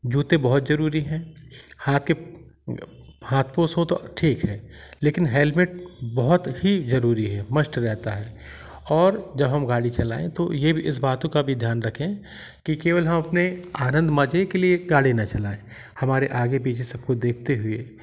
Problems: background sounds at intervals